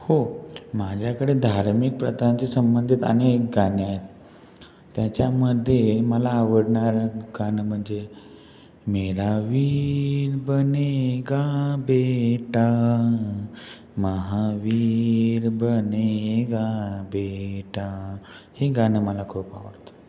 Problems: background sounds at intervals